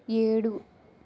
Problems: none marked